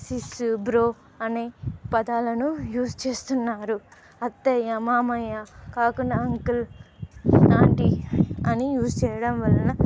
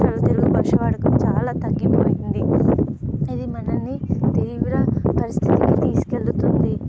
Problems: background sounds at intervals